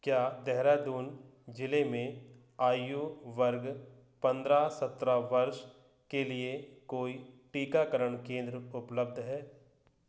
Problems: low volume